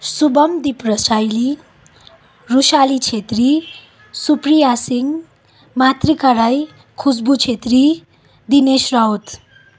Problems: background sounds at intervals